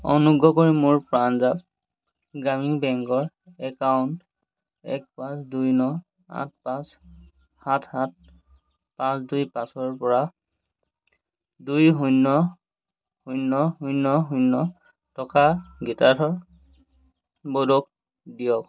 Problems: constant background noise